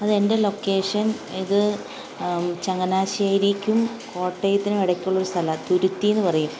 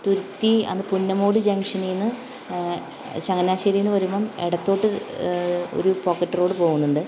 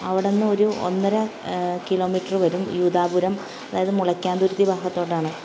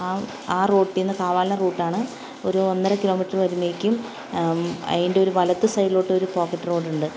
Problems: constant background noise